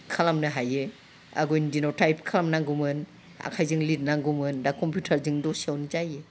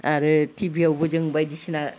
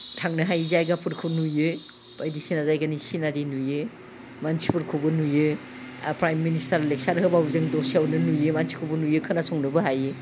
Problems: background sounds at intervals